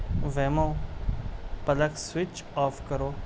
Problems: constant background noise